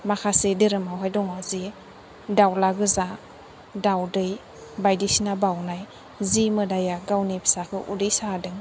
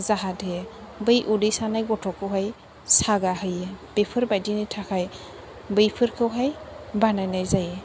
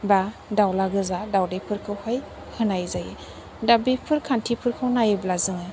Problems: constant background noise